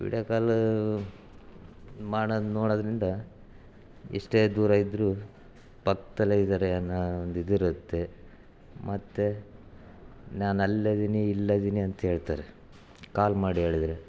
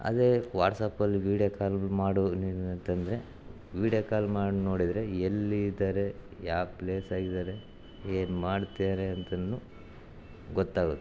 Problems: background sounds at intervals